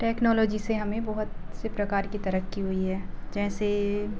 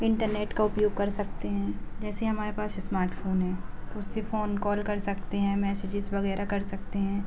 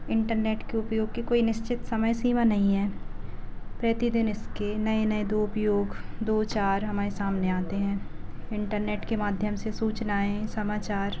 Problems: low volume